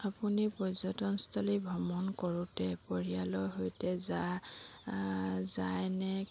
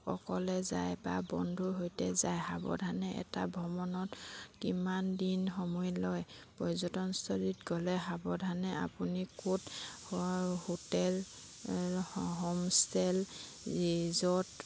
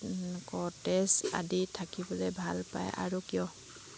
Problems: constant background noise